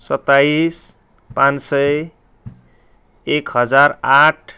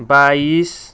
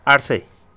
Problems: background conversations at intervals